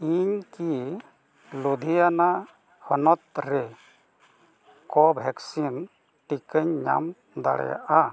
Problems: none marked